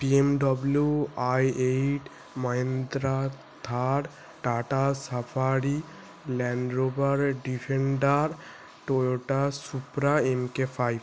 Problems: constant background noise